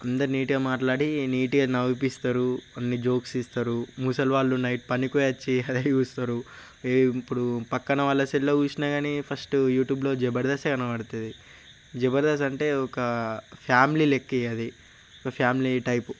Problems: constant background noise